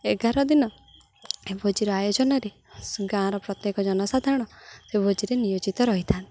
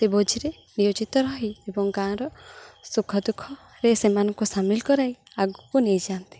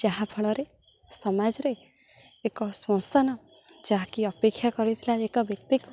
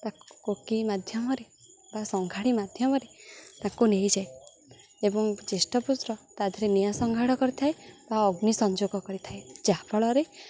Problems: none marked